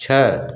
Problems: background sounds at intervals